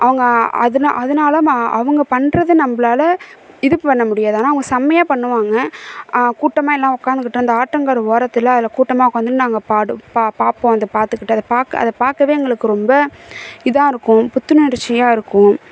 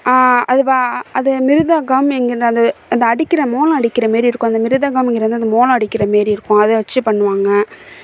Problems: none marked